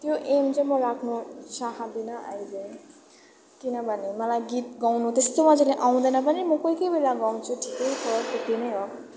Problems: continuous background conversations, low volume